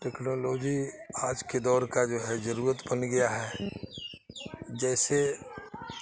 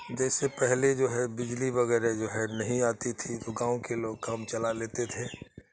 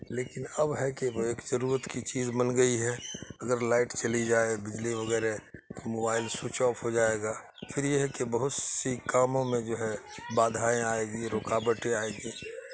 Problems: constant background noise